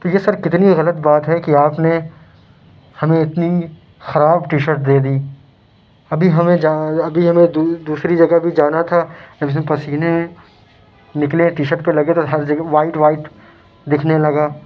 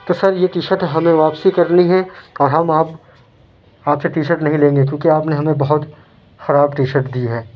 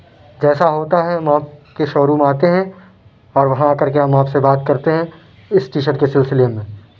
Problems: constant background noise